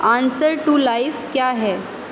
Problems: constant background noise, echo